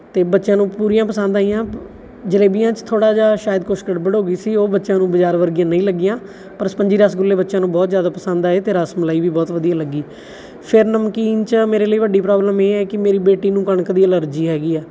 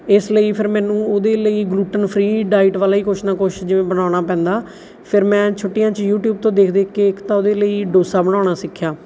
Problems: background sounds at intervals